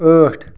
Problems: background sounds at intervals